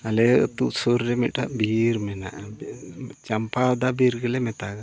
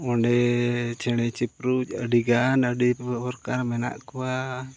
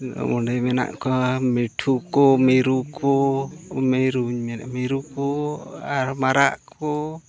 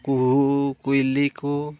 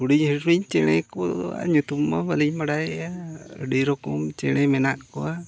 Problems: constant background noise, continuous background conversations